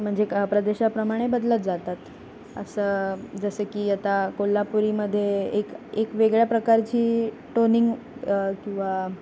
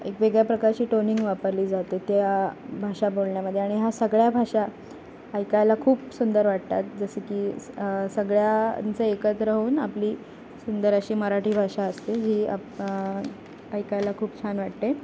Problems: constant background noise